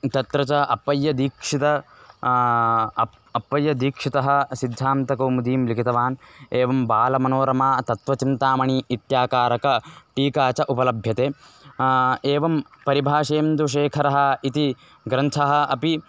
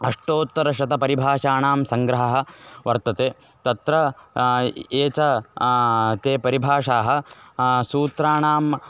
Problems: none marked